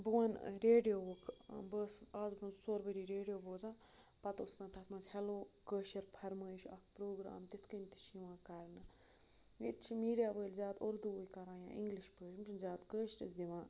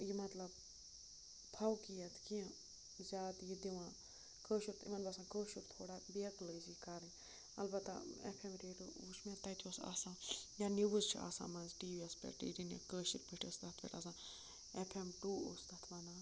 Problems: constant background noise, low volume